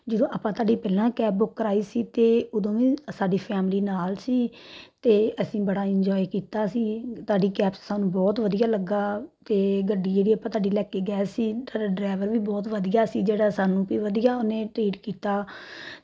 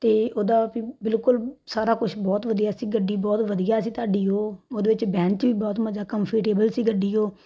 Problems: background sounds at intervals